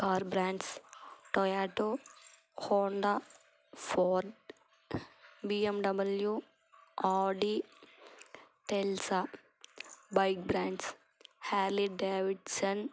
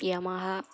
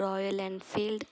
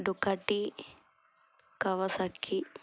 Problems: constant background noise